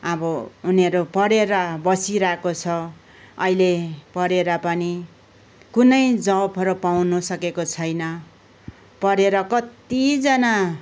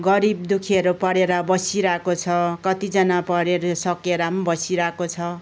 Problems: none marked